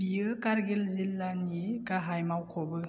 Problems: none marked